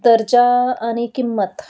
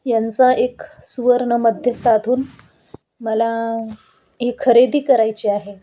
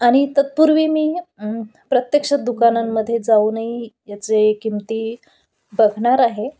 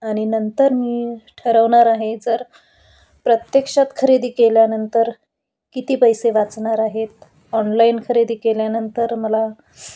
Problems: none marked